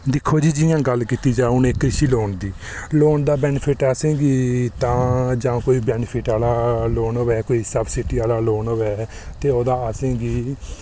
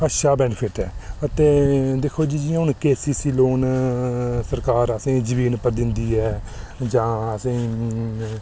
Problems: none marked